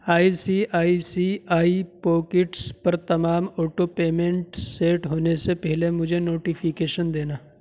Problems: none marked